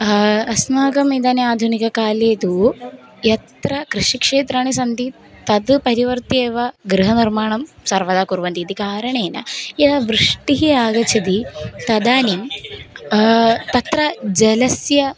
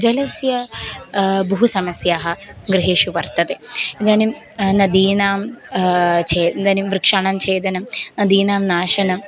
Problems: none marked